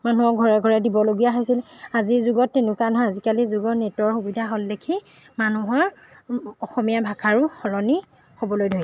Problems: background sounds at intervals